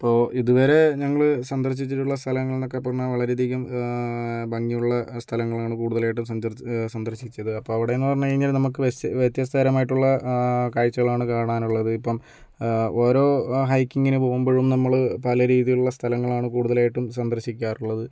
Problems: none marked